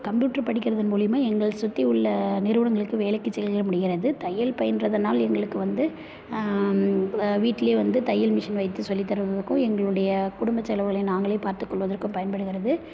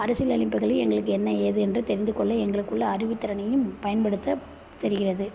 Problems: none marked